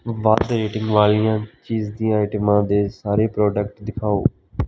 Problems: background sounds at intervals